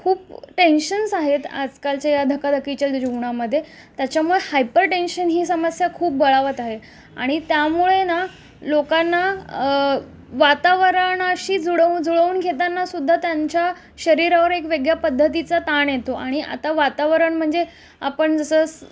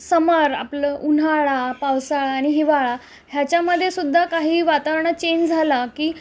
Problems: constant background noise, background conversations at intervals